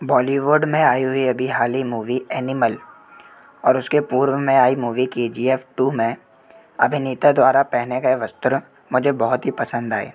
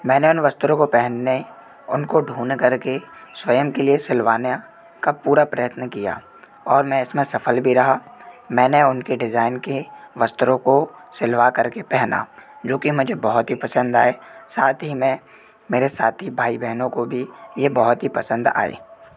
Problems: constant background noise